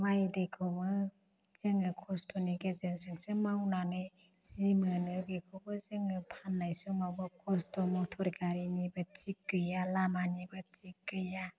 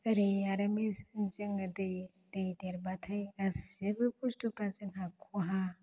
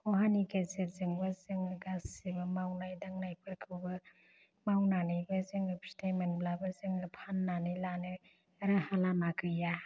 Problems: low volume